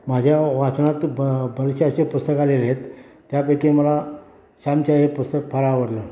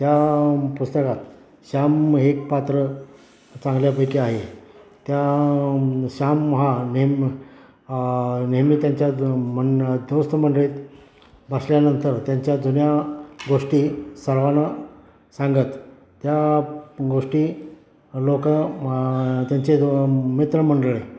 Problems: background sounds at intervals